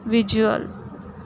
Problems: background sounds at intervals